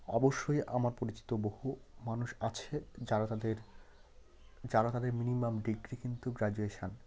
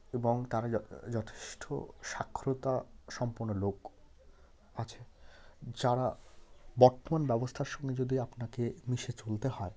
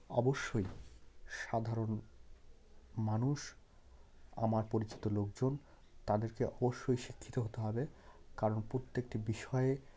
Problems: none marked